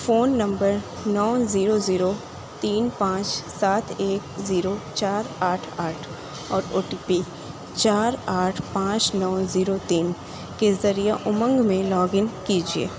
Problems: constant background noise